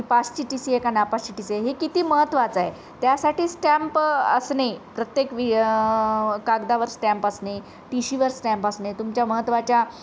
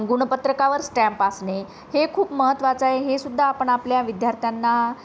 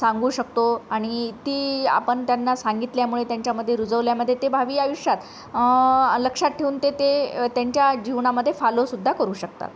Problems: none marked